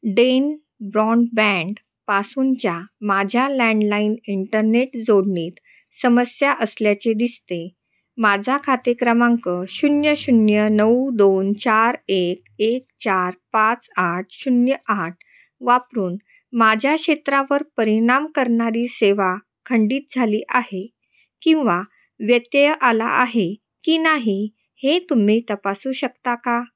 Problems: constant background noise, echo